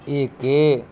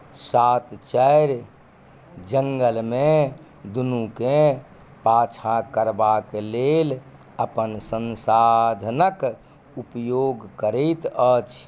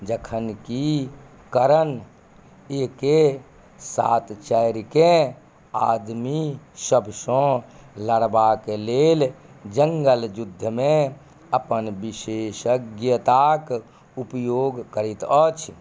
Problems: none marked